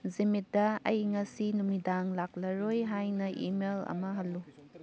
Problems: background conversations at intervals